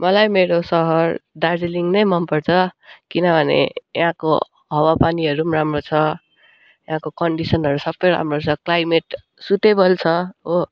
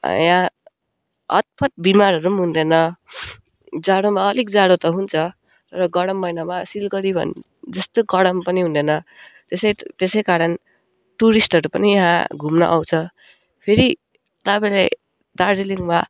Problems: background sounds at intervals